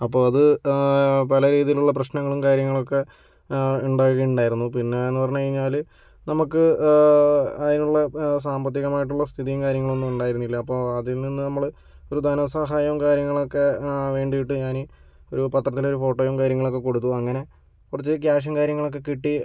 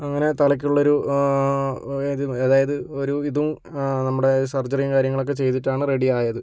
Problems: none marked